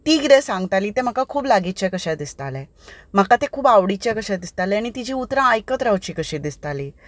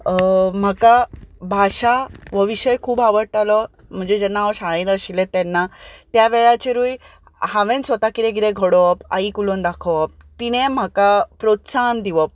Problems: none marked